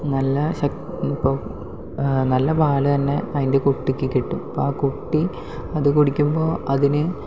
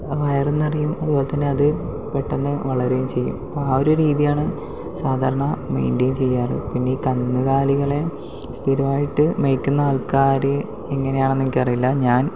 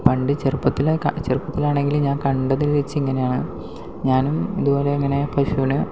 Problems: background sounds at intervals, low volume